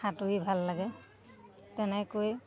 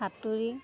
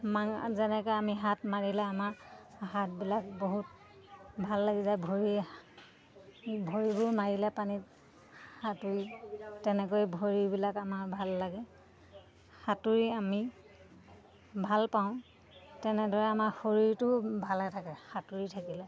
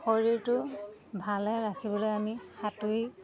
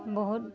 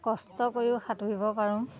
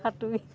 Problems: constant background noise, background conversations at intervals